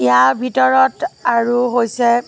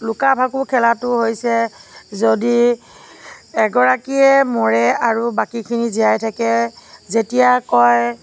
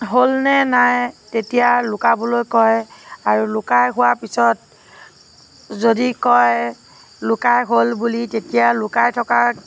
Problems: constant background noise, background conversations at intervals